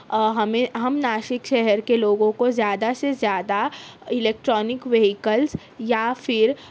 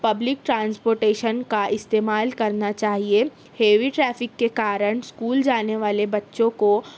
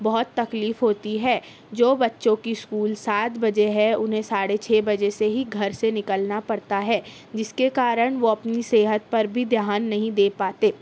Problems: none marked